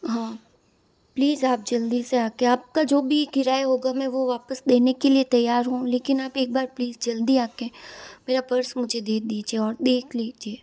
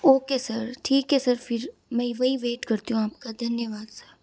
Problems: background sounds at intervals